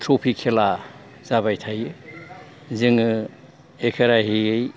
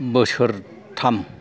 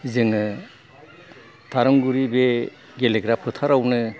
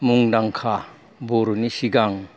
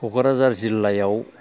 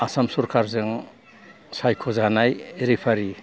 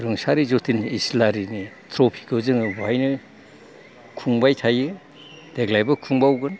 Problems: background sounds at intervals